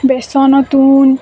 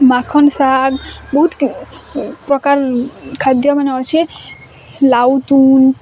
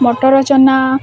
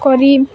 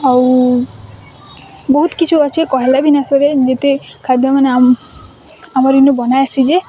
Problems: constant background noise